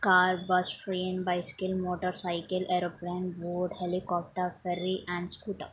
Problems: none marked